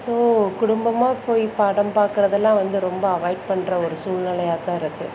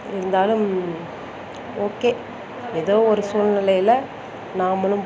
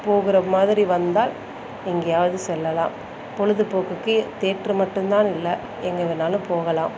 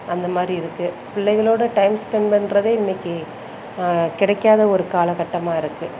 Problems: none marked